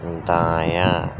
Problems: constant background noise